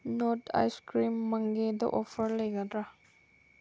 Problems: constant background noise